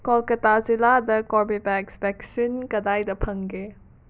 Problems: none marked